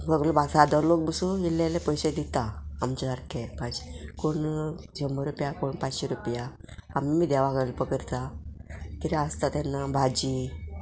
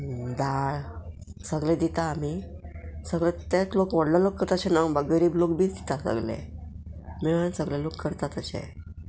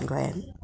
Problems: background sounds at intervals